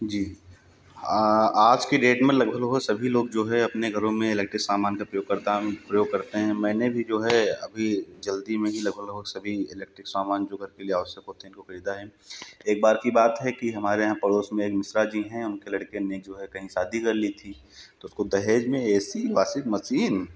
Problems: background sounds at intervals